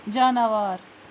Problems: constant background noise